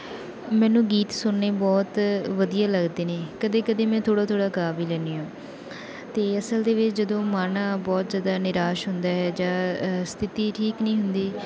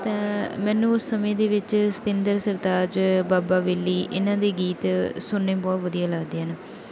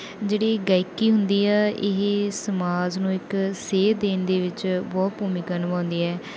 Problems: none marked